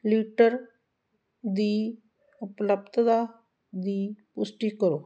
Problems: constant background noise